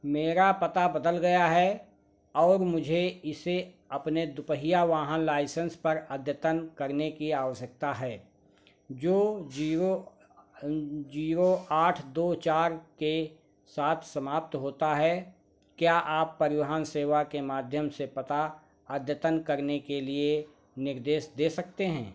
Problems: constant background noise